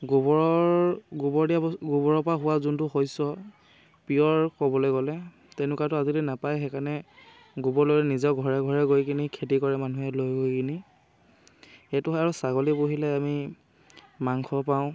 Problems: constant background noise, background conversations at intervals